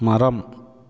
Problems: none marked